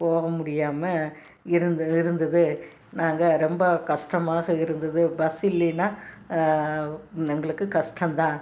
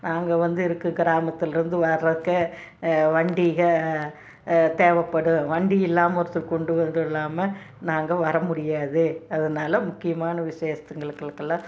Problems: none marked